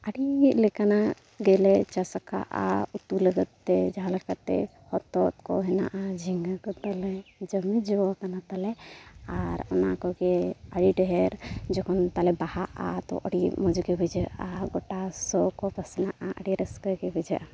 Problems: background sounds at intervals